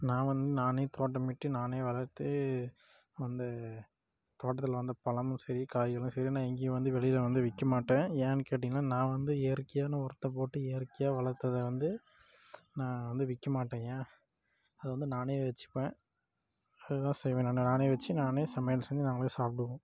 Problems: low volume